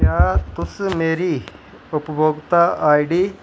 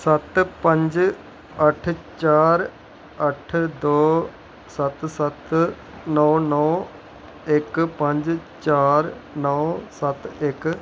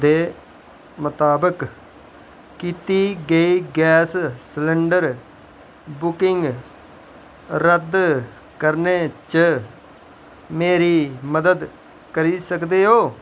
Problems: none marked